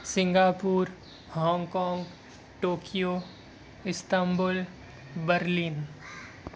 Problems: constant background noise